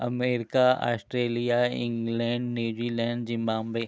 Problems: constant background noise